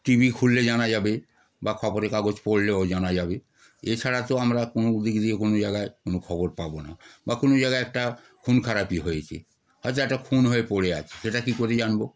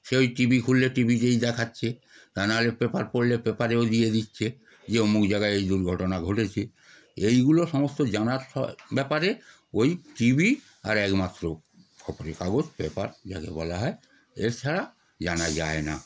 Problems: background sounds at intervals